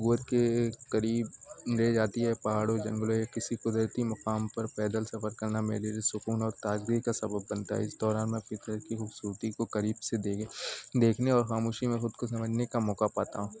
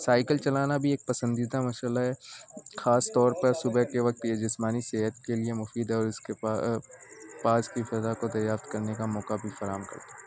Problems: constant background noise